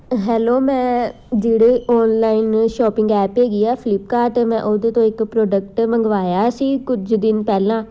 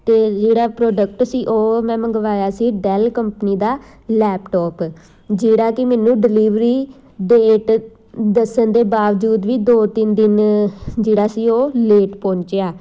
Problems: constant background noise